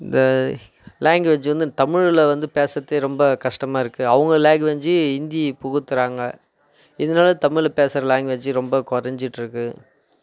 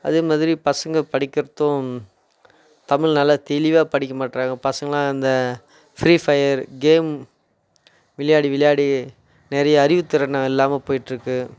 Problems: none marked